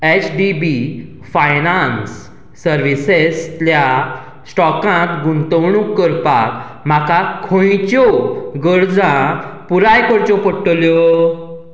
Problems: none marked